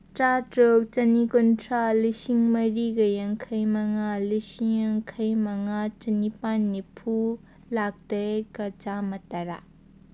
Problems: none marked